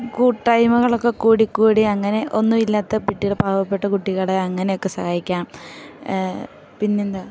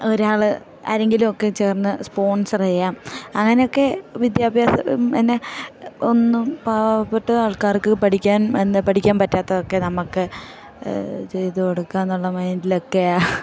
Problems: background sounds at intervals